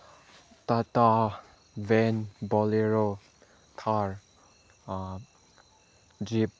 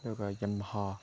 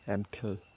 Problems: background sounds at intervals